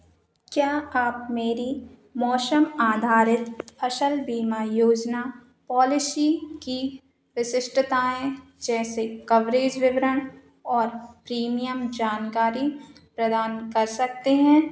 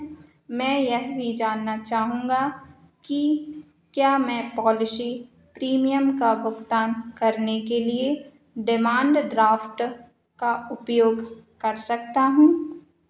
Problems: none marked